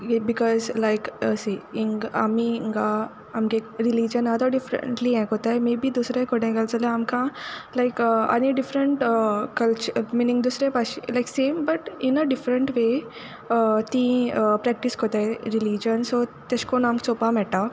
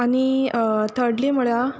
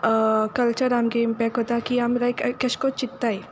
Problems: background sounds at intervals